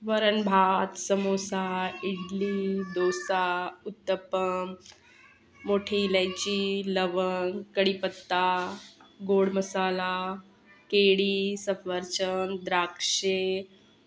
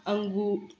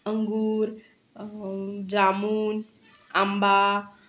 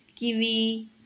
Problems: constant background noise, continuous background conversations